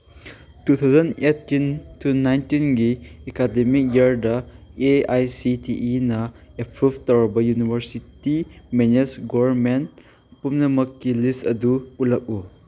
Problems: background sounds at intervals